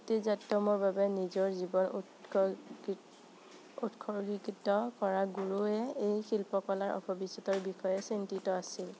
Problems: constant background noise